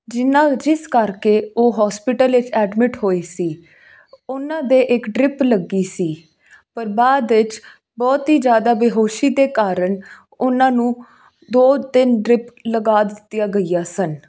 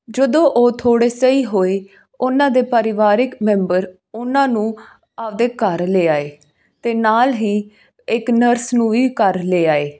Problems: background sounds at intervals